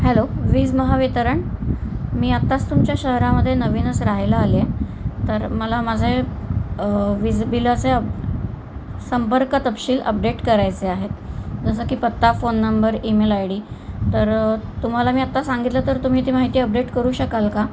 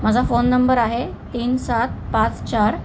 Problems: constant background noise, background conversations at intervals